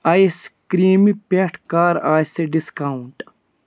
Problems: none marked